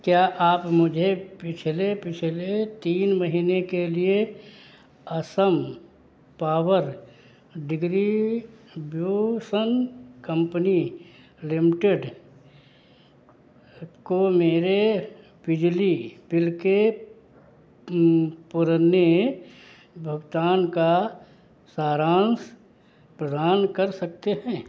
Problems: background sounds at intervals